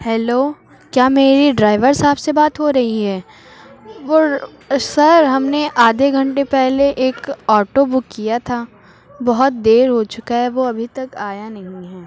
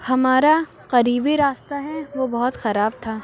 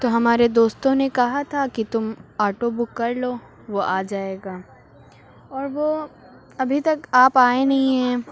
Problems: constant background noise, background conversations at intervals